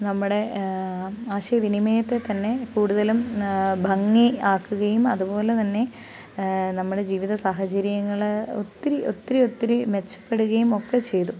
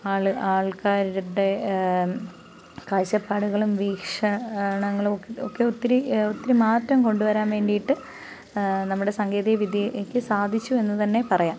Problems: background sounds at intervals